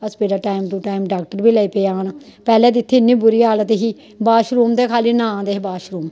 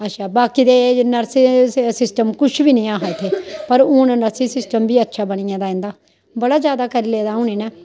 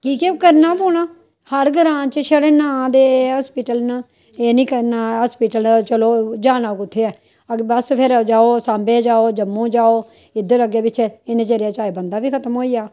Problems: none marked